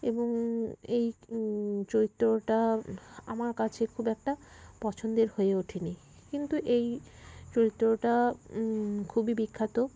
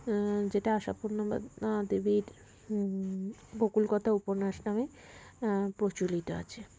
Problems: constant background noise